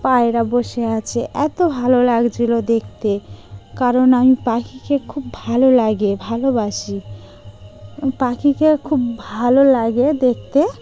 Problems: constant background noise